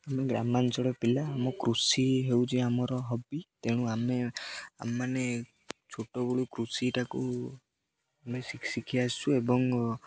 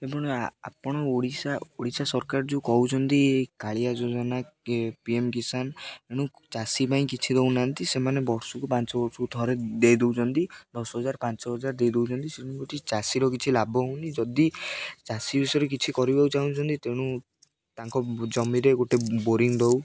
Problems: none marked